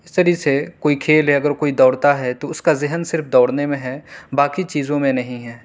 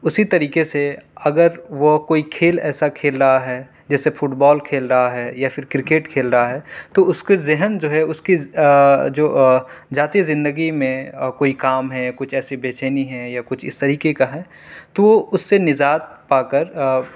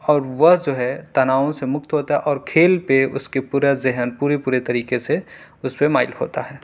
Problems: none marked